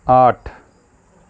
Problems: none marked